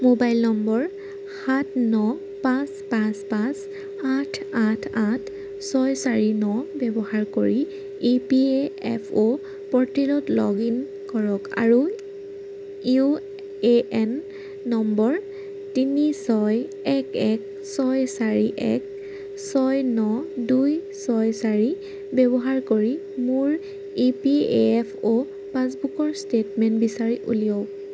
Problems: none marked